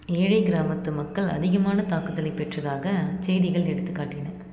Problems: constant background noise